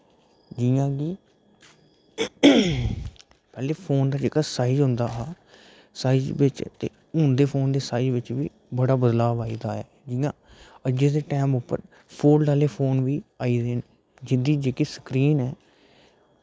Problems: background sounds at intervals